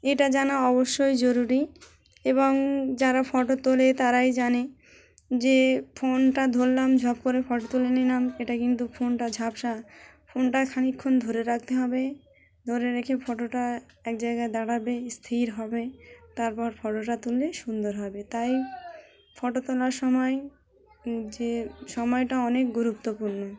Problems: constant background noise, background conversations at intervals